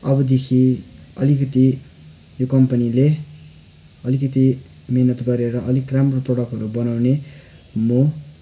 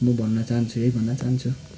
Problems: constant background noise